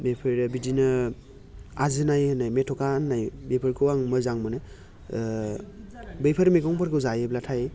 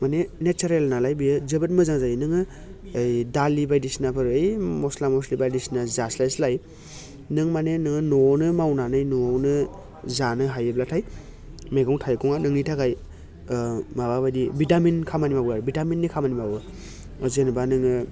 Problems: none marked